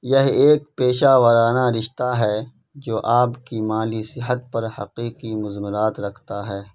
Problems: constant background noise